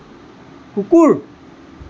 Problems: constant background noise